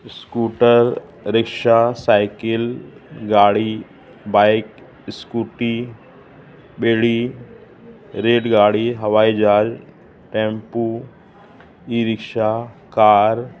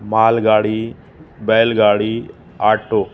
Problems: constant background noise